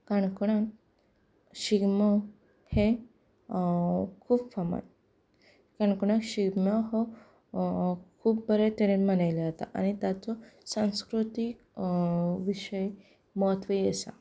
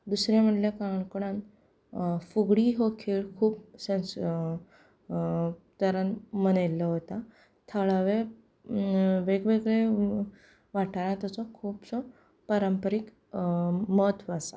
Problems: background conversations at intervals